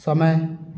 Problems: none marked